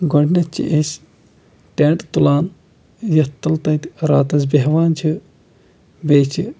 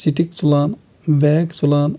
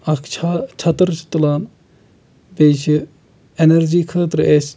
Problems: background sounds at intervals